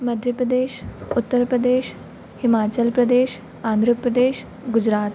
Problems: constant background noise